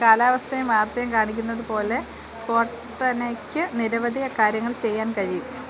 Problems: constant background noise